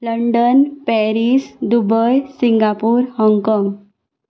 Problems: constant background noise